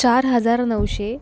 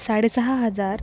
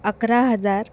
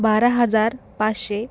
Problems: constant background noise